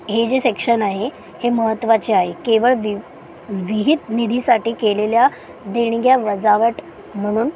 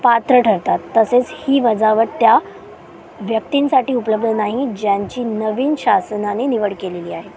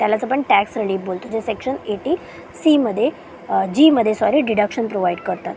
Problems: constant background noise, low volume